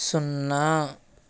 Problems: constant background noise